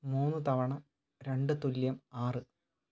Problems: none marked